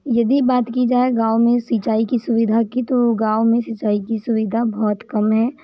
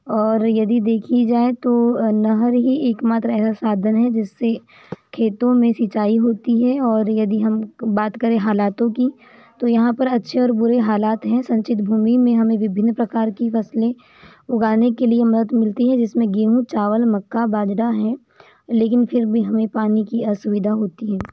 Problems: background sounds at intervals